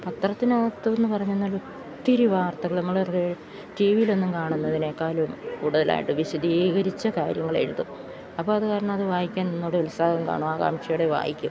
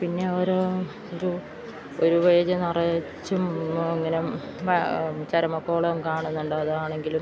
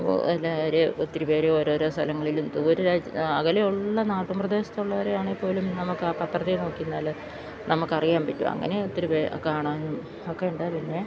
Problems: constant background noise